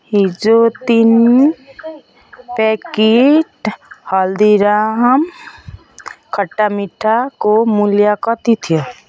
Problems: continuous background conversations